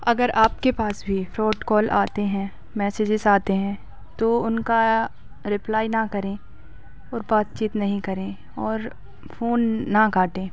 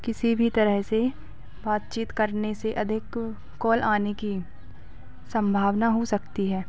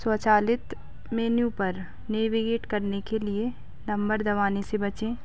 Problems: background sounds at intervals, background conversations at intervals